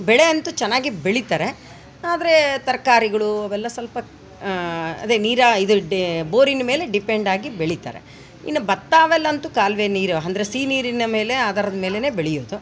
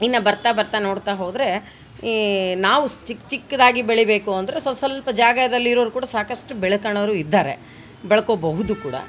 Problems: background sounds at intervals